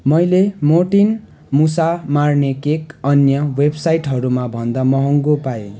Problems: none marked